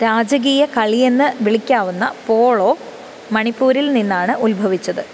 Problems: constant background noise